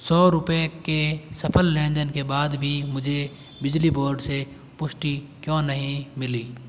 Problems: constant background noise